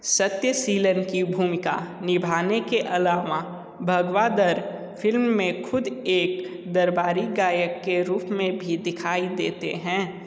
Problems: none marked